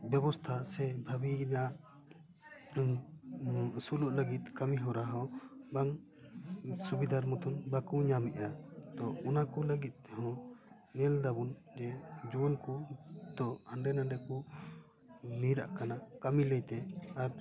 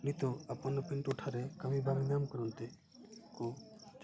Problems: background sounds at intervals, background conversations at intervals